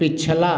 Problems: constant background noise